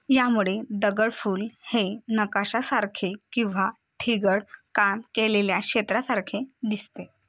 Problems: constant background noise